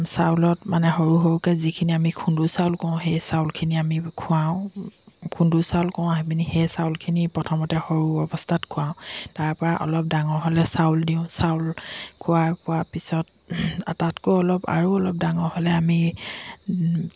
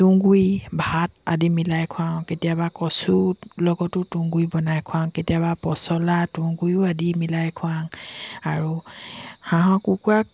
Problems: constant background noise